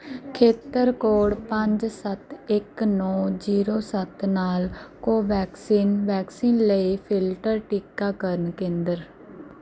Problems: background sounds at intervals